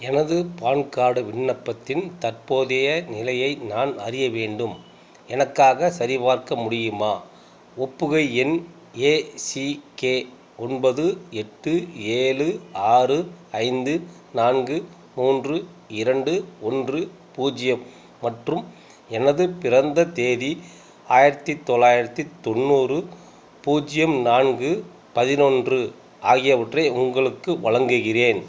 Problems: constant background noise